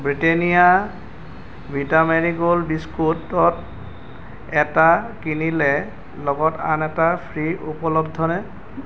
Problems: constant background noise